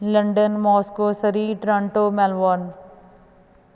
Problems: constant background noise